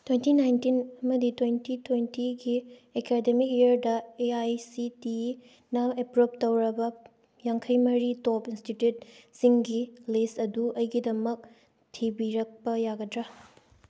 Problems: none marked